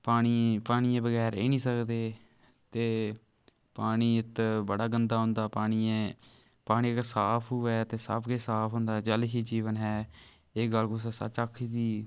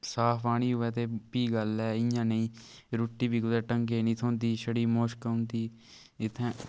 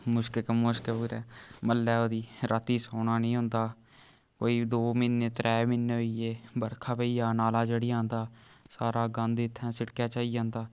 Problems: none marked